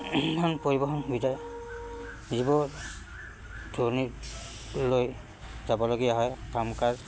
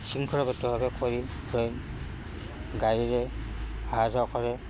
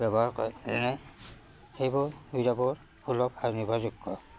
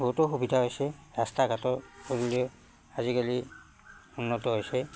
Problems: none marked